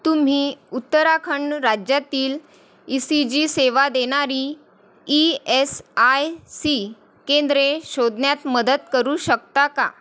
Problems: constant background noise